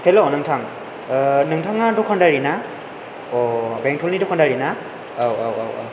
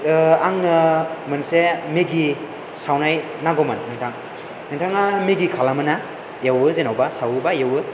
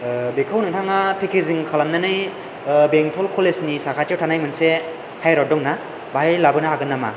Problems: none marked